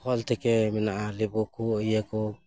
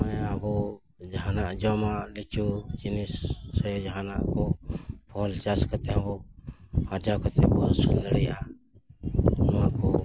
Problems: background sounds at intervals